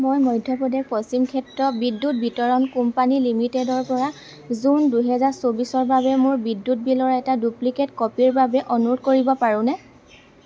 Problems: constant background noise